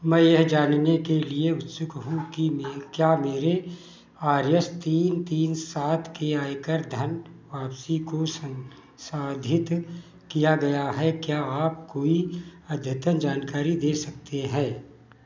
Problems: background sounds at intervals, echo